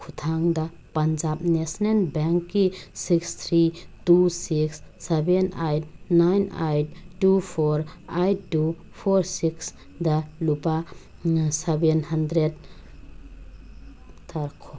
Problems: background sounds at intervals